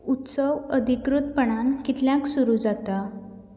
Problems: none marked